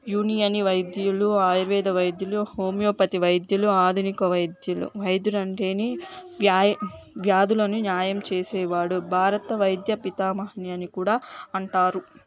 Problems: none marked